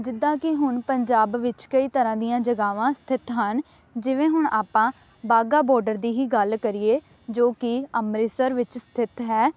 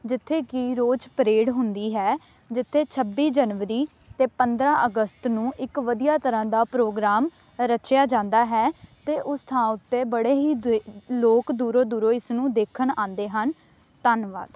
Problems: none marked